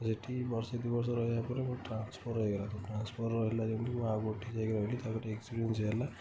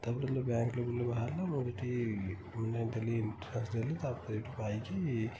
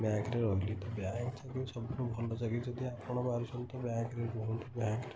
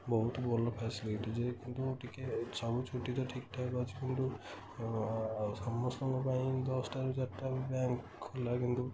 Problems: constant background noise